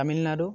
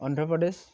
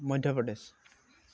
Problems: constant background noise